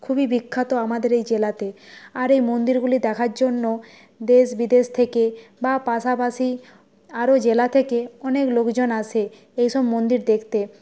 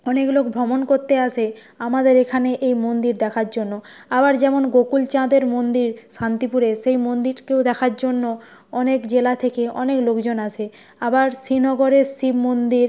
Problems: background sounds at intervals